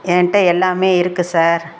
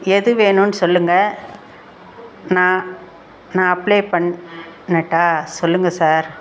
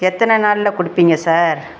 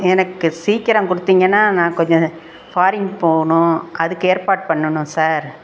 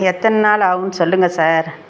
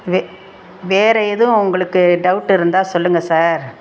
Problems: background sounds at intervals